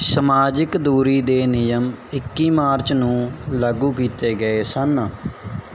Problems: background sounds at intervals